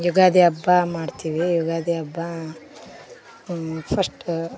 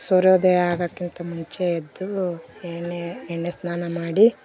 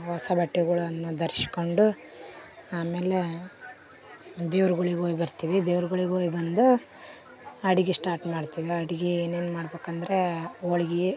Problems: none marked